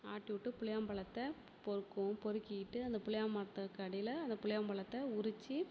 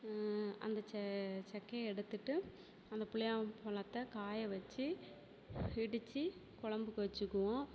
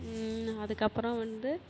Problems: constant background noise